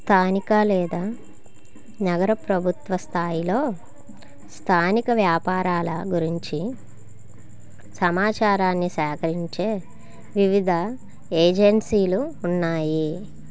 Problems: constant background noise